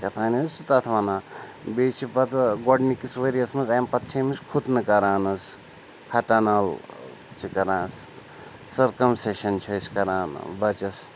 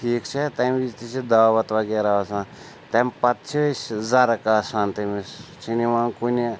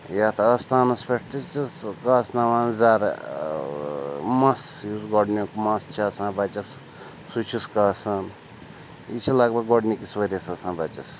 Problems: none marked